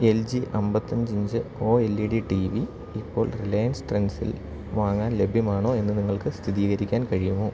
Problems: constant background noise